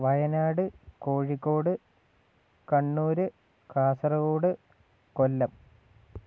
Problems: none marked